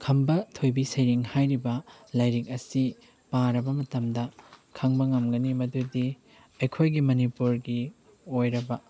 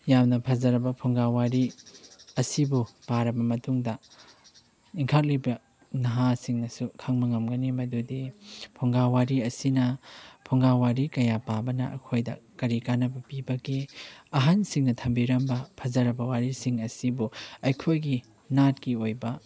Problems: none marked